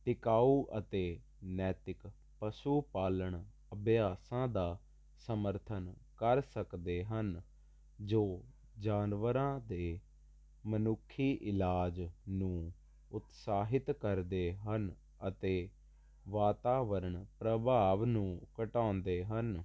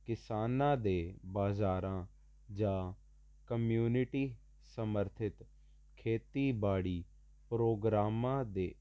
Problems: constant background noise